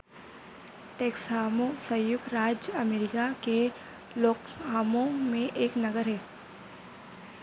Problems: constant background noise